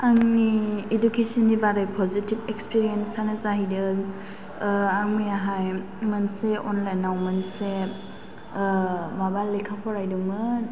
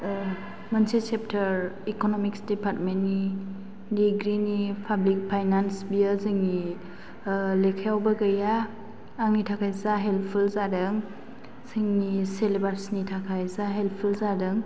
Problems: background sounds at intervals